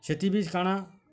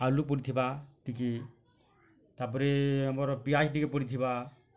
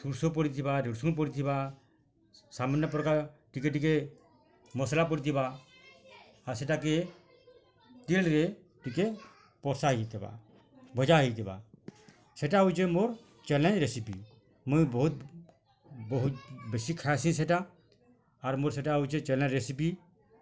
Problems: constant background noise, continuous background conversations